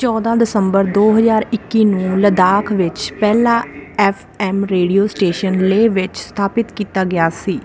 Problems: constant background noise